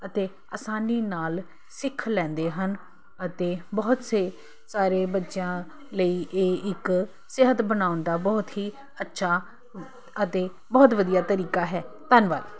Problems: constant background noise